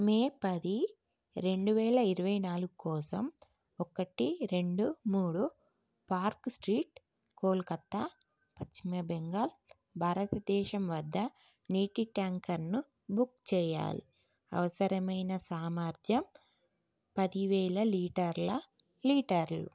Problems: none marked